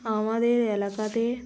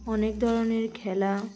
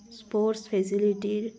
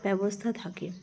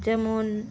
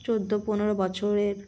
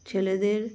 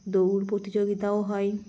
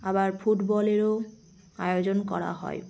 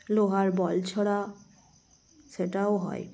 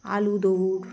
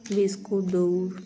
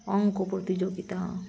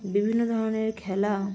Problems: none marked